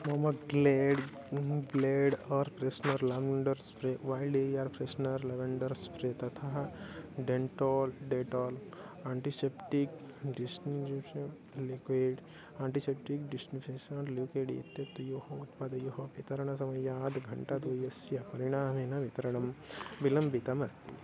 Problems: background sounds at intervals